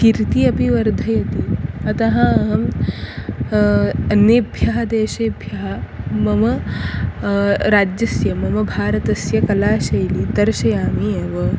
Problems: constant background noise